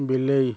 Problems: constant background noise